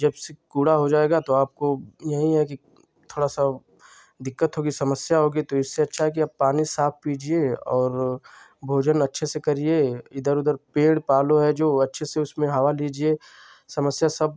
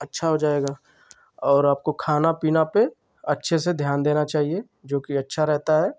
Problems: constant background noise